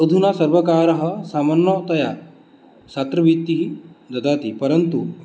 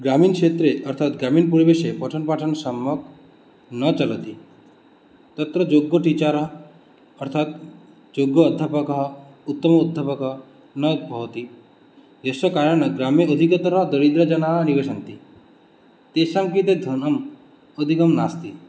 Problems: none marked